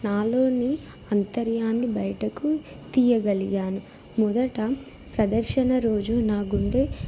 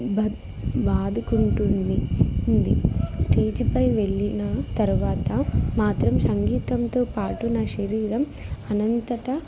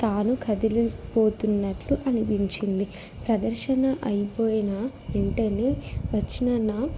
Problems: background sounds at intervals